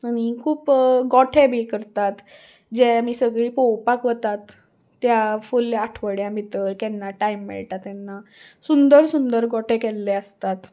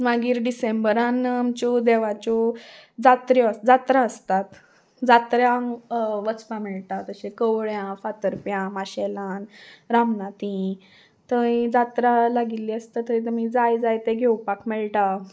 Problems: background sounds at intervals